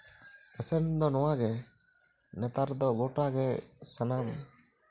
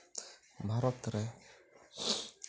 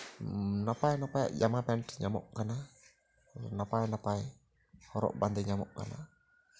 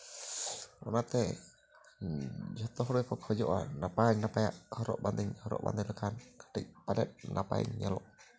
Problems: low volume